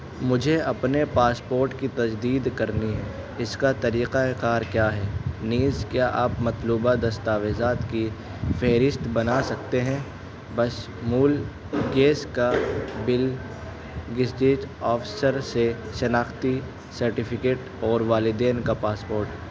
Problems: constant background noise, low volume